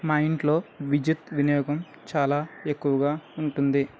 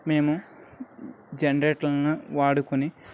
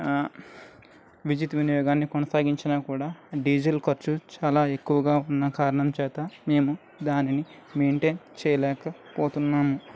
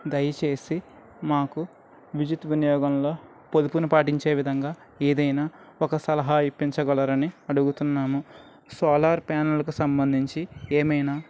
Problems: none marked